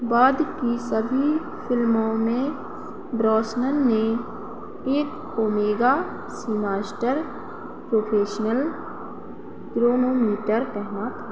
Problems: constant background noise